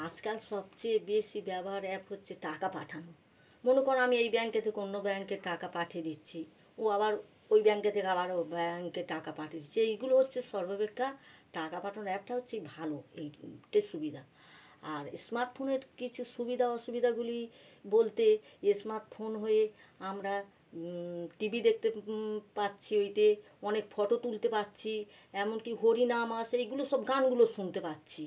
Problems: none marked